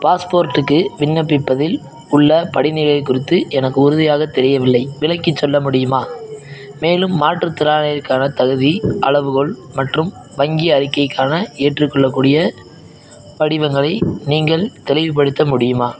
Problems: background sounds at intervals